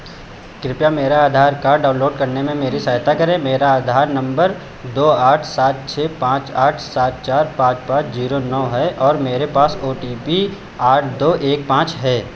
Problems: constant background noise